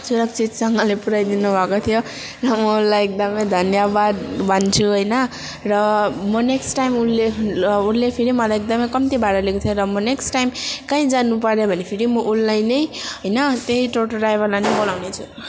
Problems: constant background noise, continuous background conversations